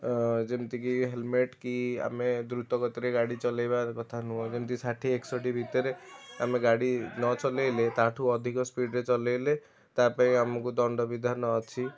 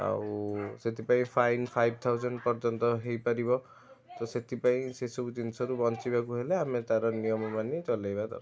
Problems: none marked